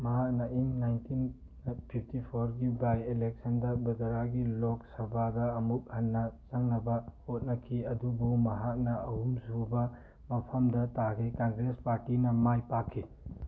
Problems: background sounds at intervals